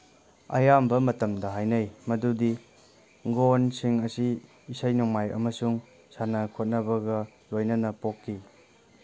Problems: background sounds at intervals